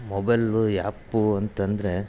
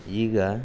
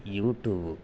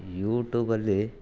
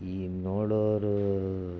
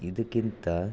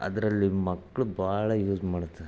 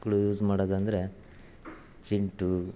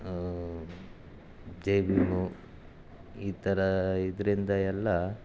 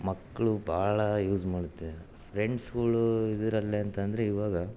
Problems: background sounds at intervals